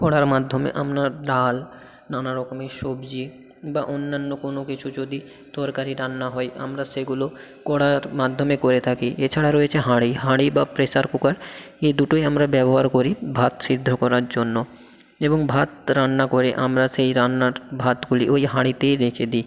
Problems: constant background noise, background conversations at intervals